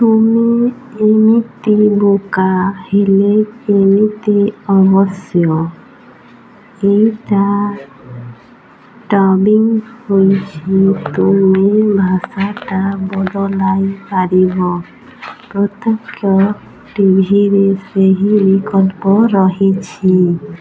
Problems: constant background noise, continuous background conversations